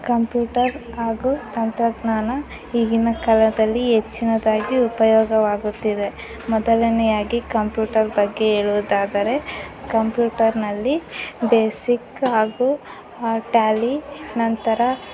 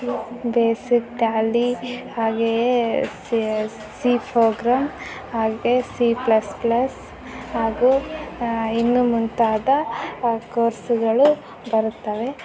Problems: background sounds at intervals